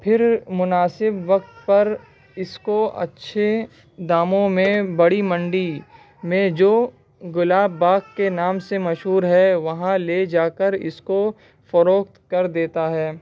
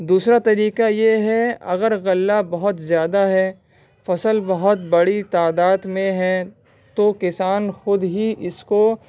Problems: constant background noise